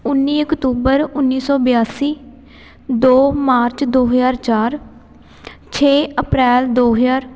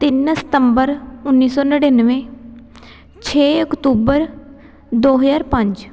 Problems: background sounds at intervals, background conversations at intervals